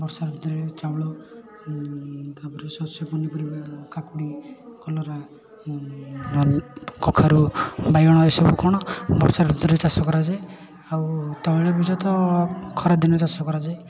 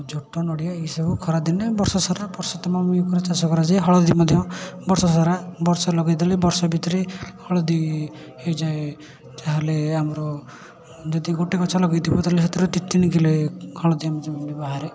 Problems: none marked